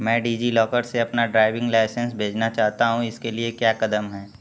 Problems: constant background noise